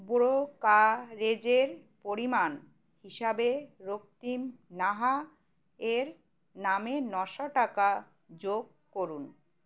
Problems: constant background noise